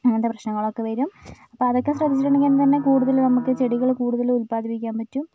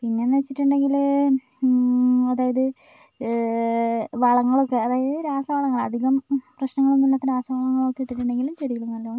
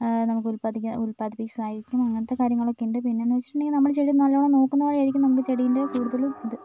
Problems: background sounds at intervals